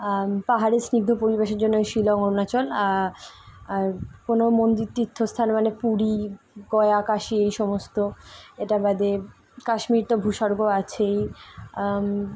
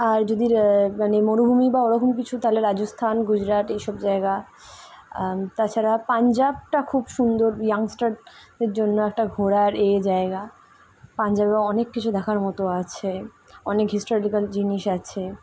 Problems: constant background noise